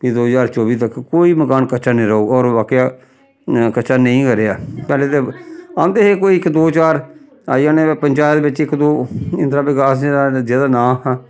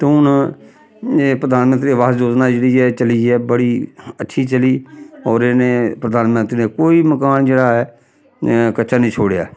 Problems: background sounds at intervals